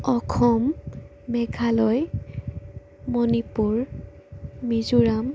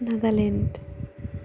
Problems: constant background noise